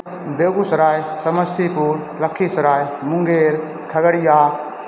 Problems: none marked